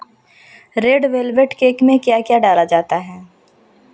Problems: constant background noise